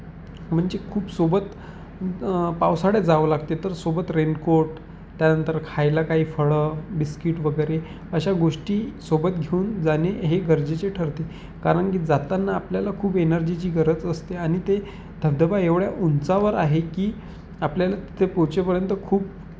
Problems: constant background noise